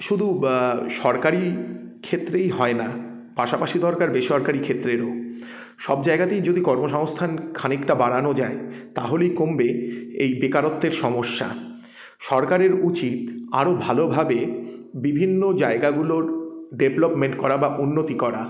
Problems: none marked